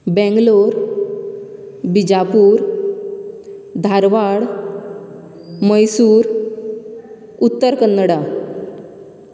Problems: none marked